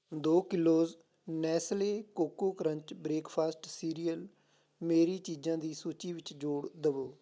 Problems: background sounds at intervals